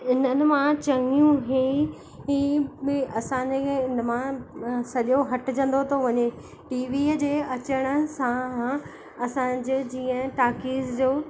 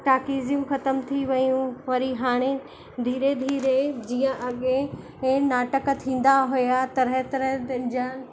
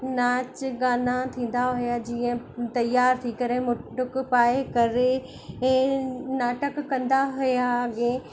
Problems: constant background noise, echo